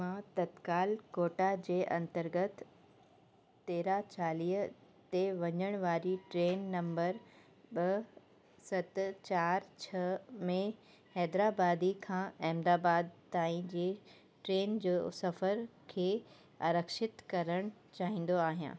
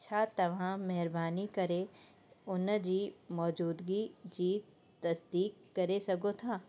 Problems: constant background noise